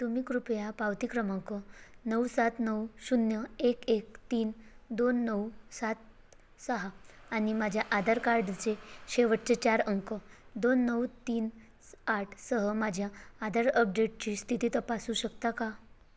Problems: constant background noise